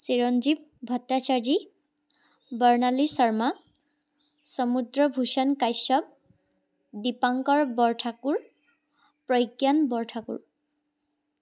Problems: background sounds at intervals